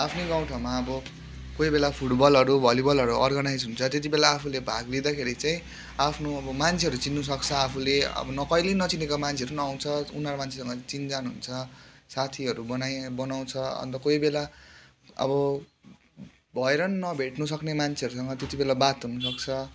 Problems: constant background noise